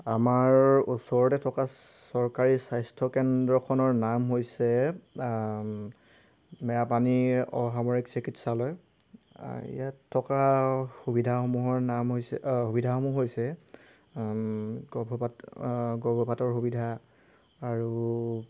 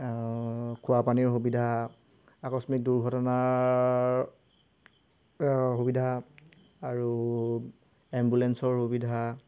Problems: background sounds at intervals